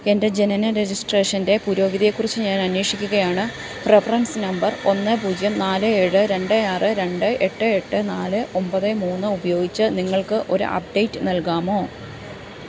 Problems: constant background noise